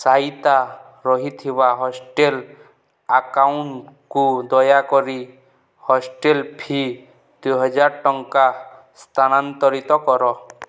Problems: none marked